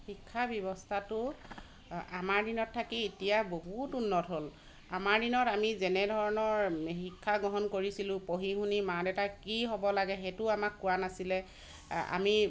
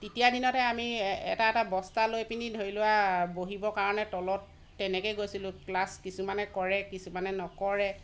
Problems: constant background noise